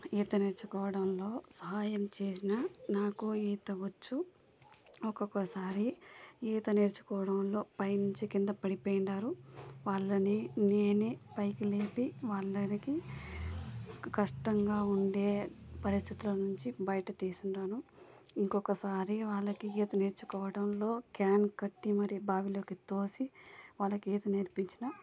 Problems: low volume